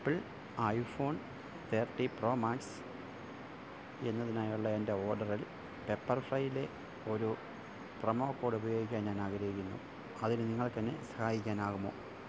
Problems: low volume